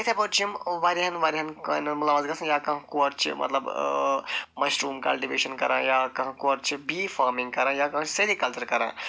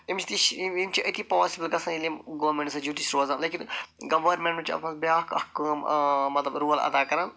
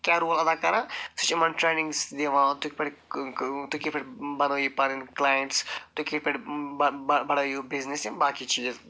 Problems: none marked